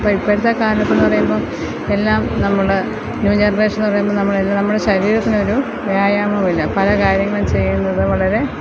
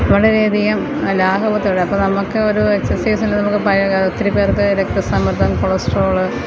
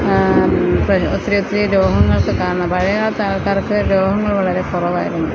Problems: constant background noise